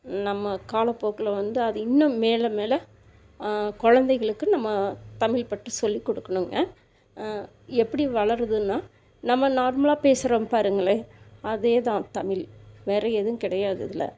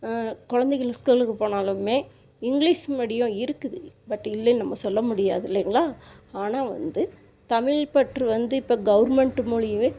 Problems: none marked